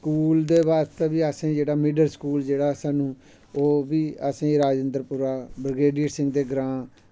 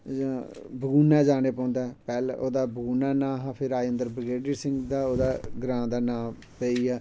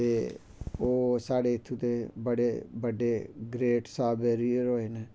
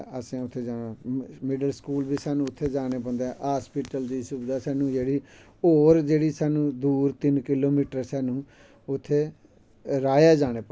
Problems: none marked